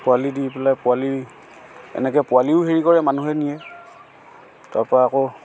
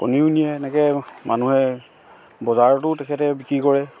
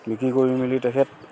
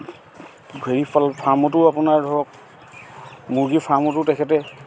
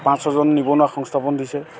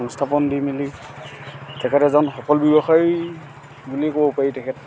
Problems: constant background noise, background conversations at intervals